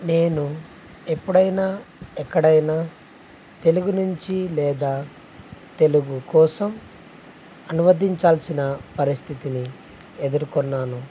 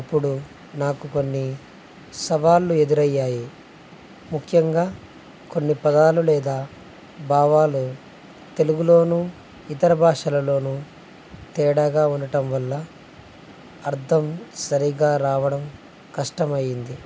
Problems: constant background noise, low volume